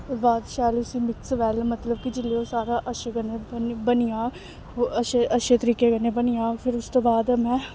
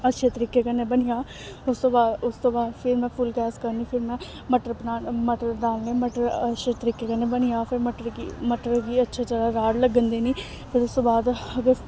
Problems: none marked